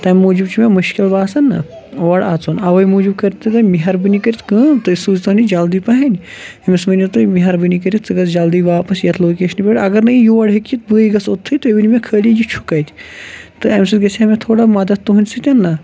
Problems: background sounds at intervals, background conversations at intervals